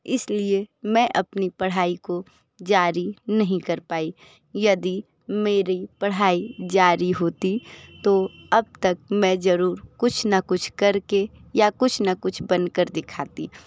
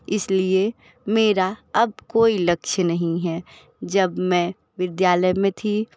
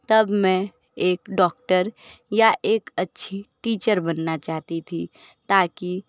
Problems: background sounds at intervals